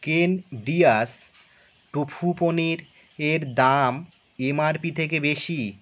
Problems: constant background noise